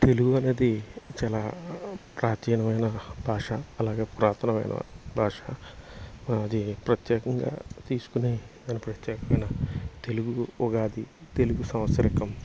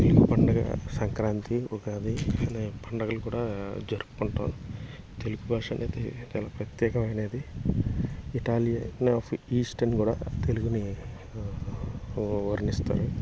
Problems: constant background noise